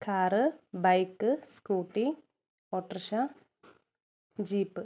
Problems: none marked